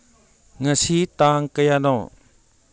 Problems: none marked